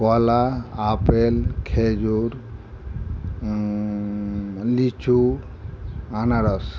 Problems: constant background noise